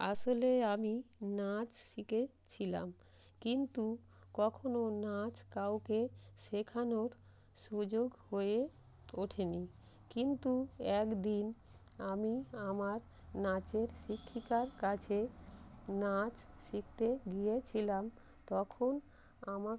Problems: constant background noise